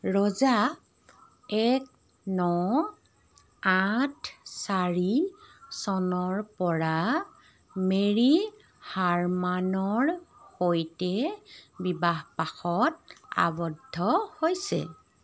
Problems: none marked